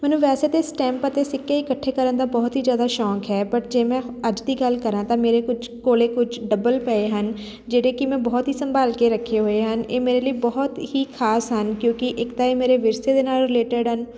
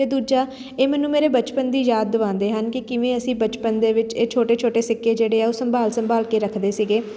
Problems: constant background noise